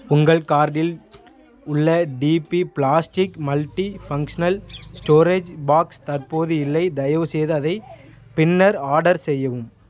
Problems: background sounds at intervals